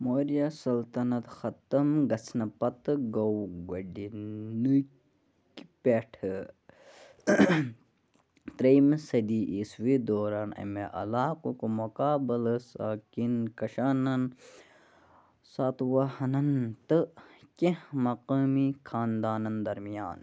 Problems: constant background noise